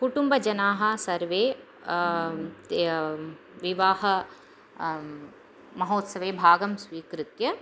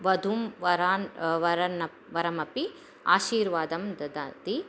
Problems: none marked